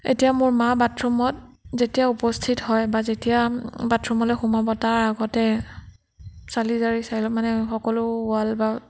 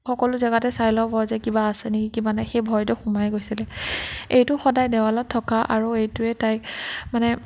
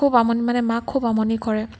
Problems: none marked